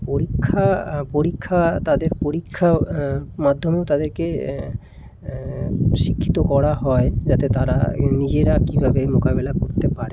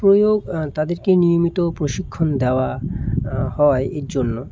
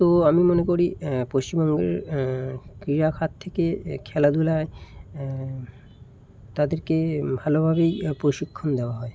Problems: constant background noise